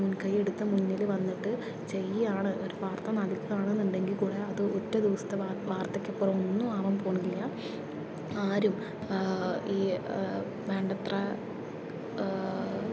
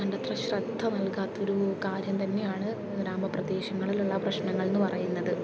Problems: constant background noise, low volume